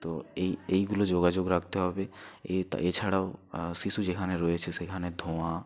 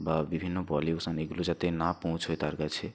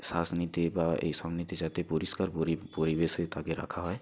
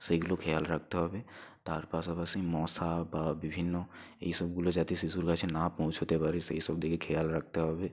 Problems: background sounds at intervals, low volume